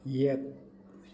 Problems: constant background noise